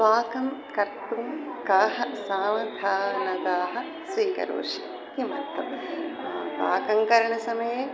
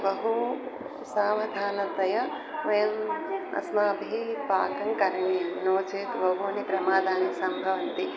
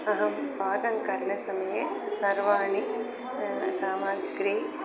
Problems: constant background noise, continuous background conversations